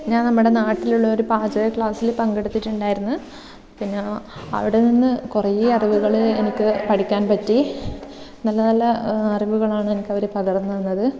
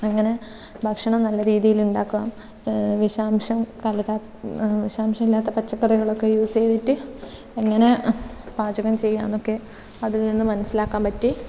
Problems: constant background noise